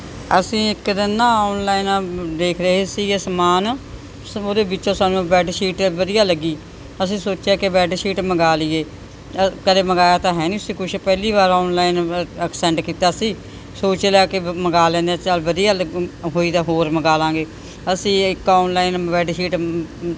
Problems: none marked